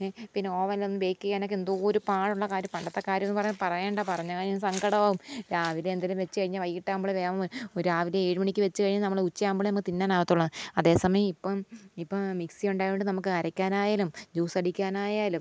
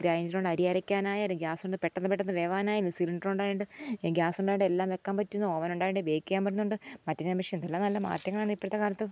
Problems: none marked